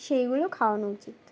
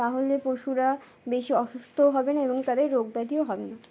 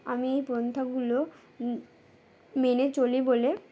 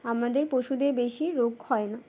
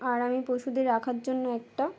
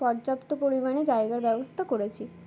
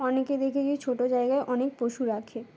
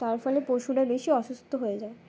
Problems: background sounds at intervals, background conversations at intervals